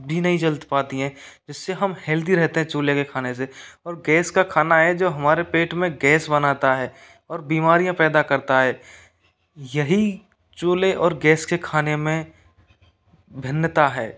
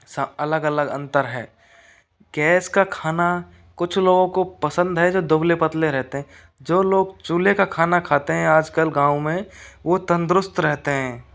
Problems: none marked